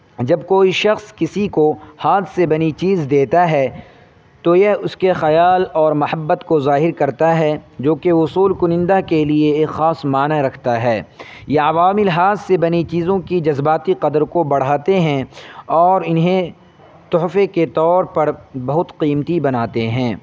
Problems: constant background noise